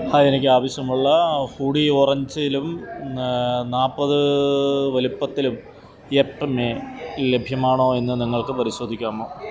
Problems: none marked